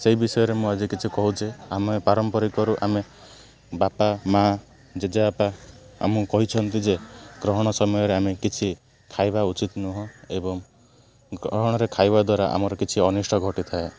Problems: none marked